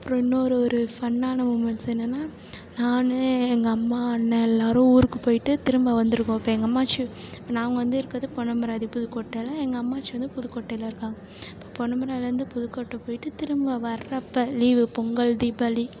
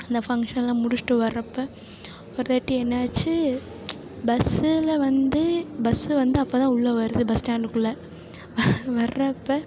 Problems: none marked